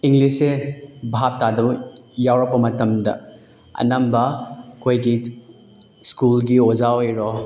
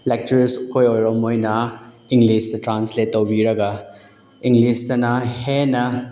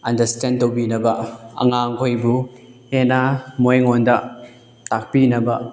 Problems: none marked